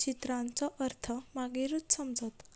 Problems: background sounds at intervals